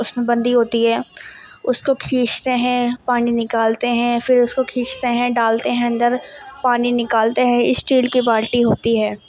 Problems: constant background noise